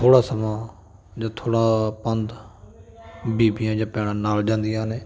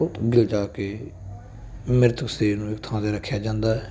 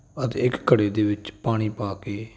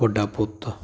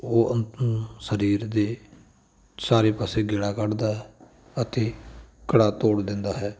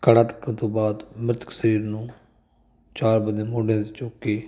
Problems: none marked